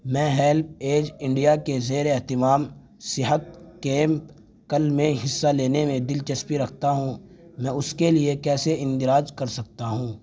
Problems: none marked